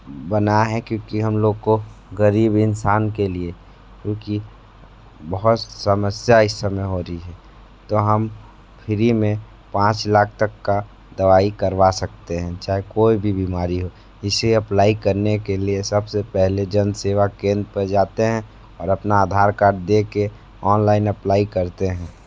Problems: background sounds at intervals